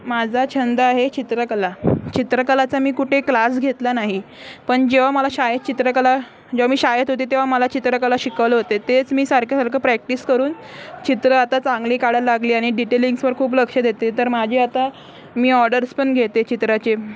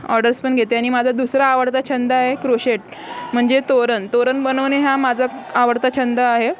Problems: constant background noise, continuous background conversations